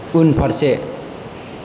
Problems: constant background noise